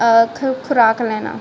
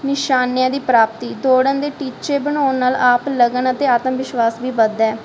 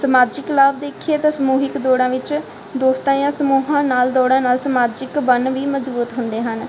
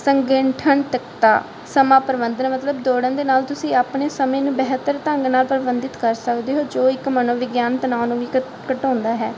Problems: constant background noise